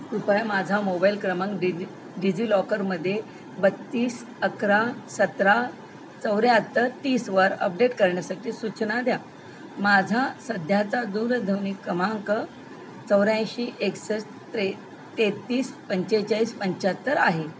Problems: none marked